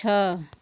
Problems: constant background noise